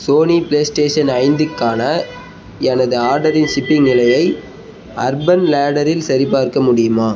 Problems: constant background noise